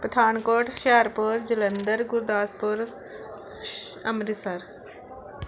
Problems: none marked